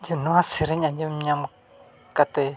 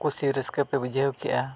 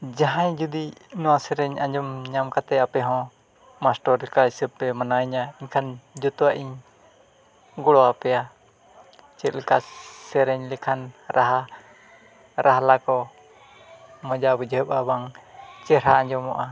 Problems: background sounds at intervals, background conversations at intervals, low volume